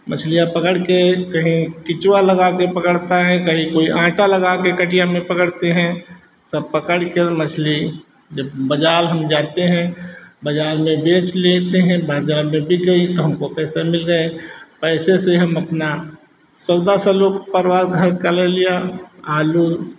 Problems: constant background noise, background conversations at intervals